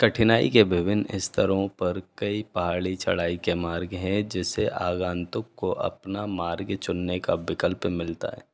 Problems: none marked